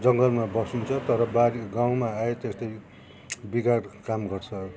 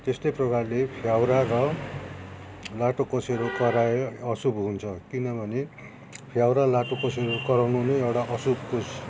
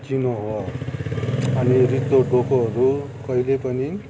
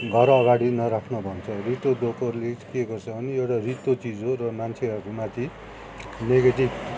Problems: none marked